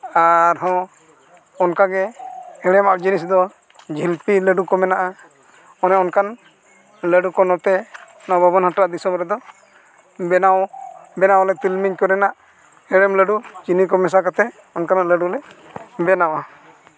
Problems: constant background noise